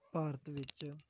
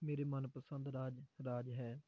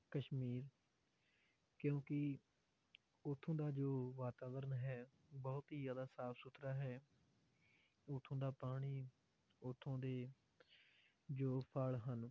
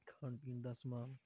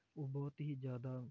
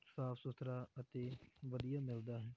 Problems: low volume